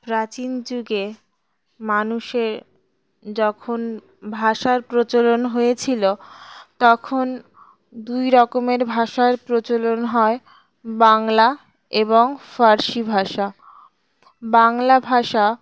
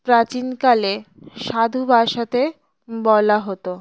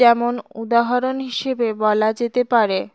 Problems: background sounds at intervals